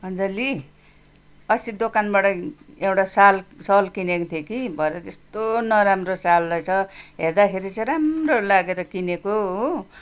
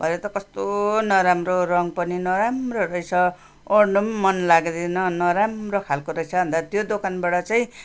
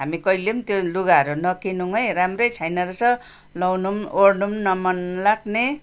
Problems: background sounds at intervals